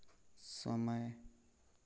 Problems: none marked